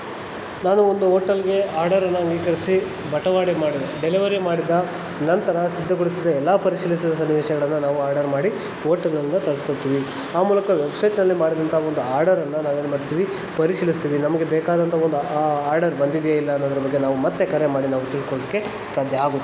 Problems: constant background noise